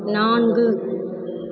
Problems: constant background noise